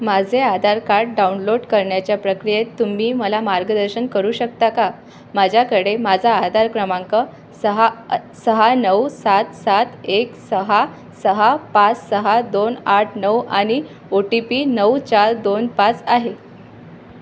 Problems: none marked